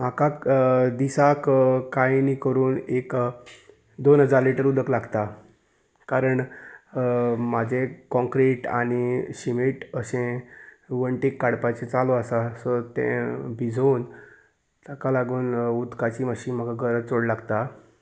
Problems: constant background noise